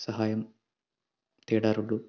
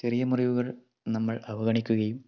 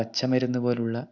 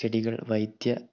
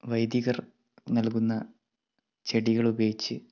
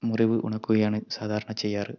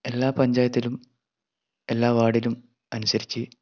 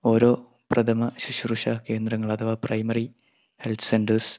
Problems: low volume